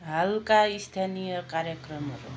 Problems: background sounds at intervals